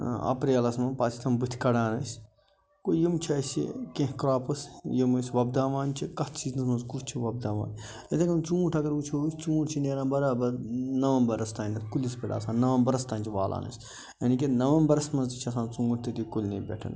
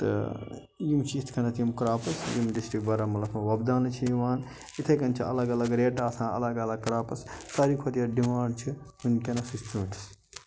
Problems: none marked